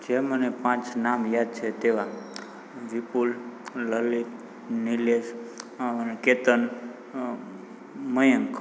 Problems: background sounds at intervals